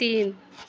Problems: none marked